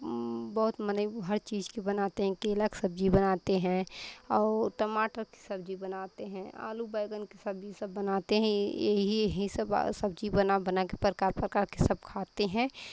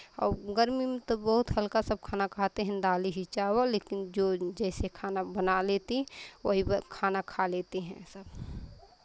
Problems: none marked